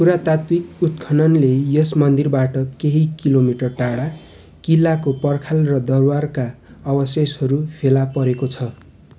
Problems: constant background noise